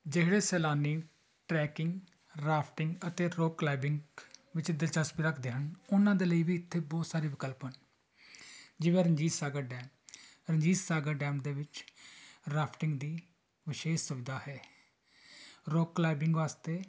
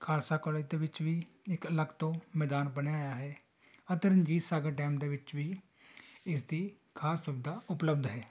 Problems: background conversations at intervals